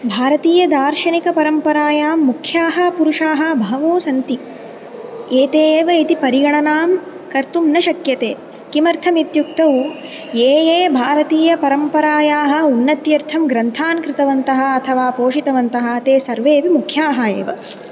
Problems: constant background noise